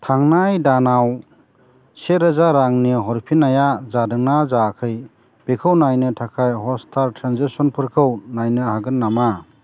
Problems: constant background noise